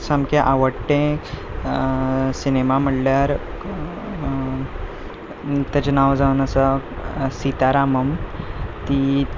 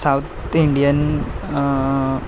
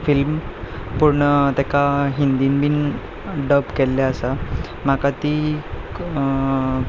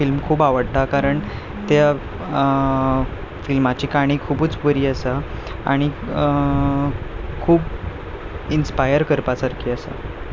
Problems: background sounds at intervals, background conversations at intervals